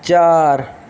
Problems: constant background noise